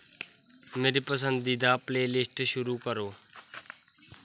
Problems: constant background noise